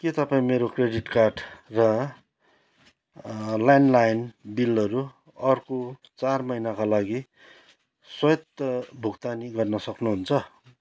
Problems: background sounds at intervals